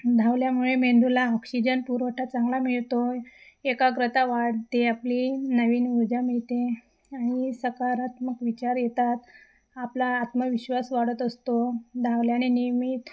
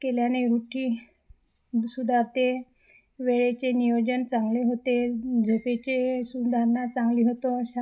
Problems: constant background noise, background conversations at intervals, echo